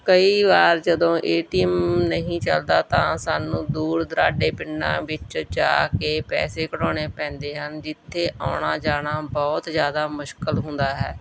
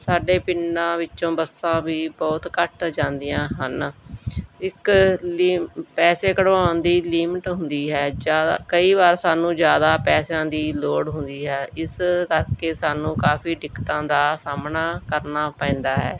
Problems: background sounds at intervals